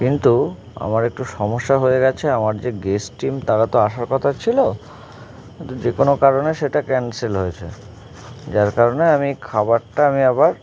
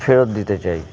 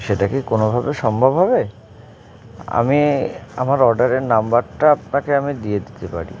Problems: constant background noise, continuous background conversations